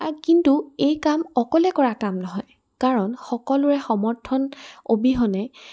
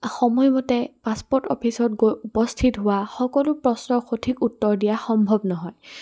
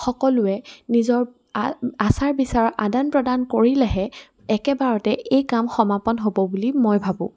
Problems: background sounds at intervals